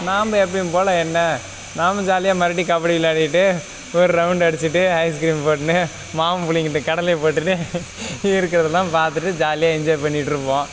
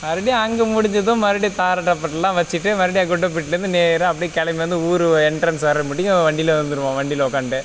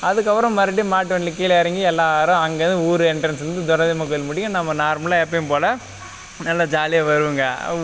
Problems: background sounds at intervals